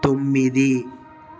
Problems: none marked